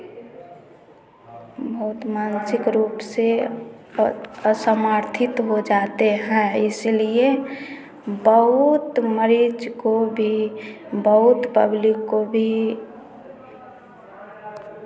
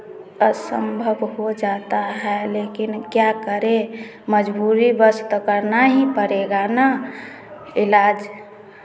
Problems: none marked